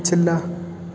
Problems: constant background noise, continuous background conversations